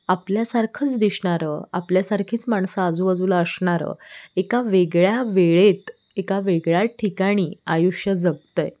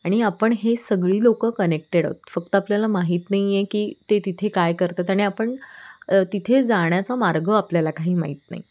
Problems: background sounds at intervals